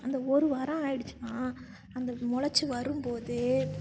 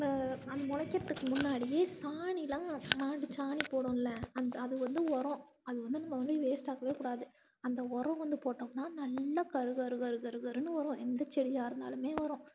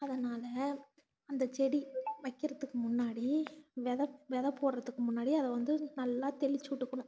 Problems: background sounds at intervals